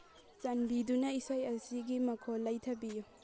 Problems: low volume